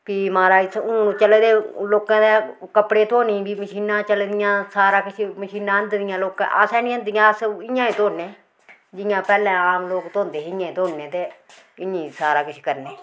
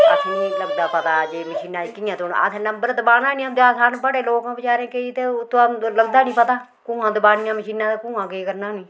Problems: none marked